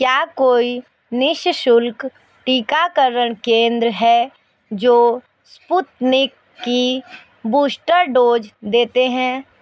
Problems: constant background noise, background conversations at intervals